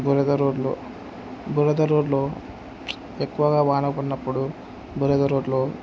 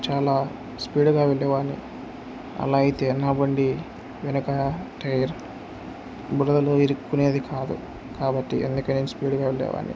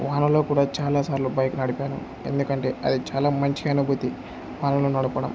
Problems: none marked